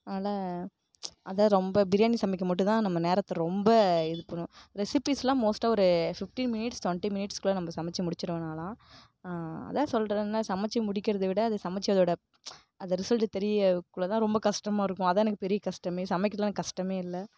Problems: background sounds at intervals